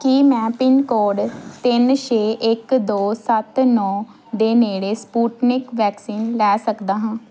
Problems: background sounds at intervals